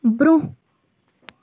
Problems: background sounds at intervals